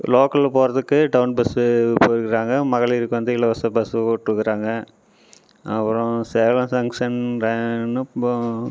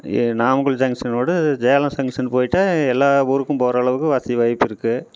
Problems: none marked